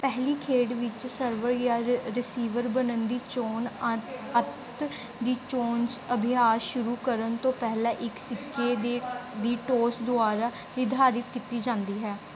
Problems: background conversations at intervals